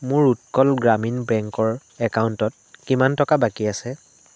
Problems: constant background noise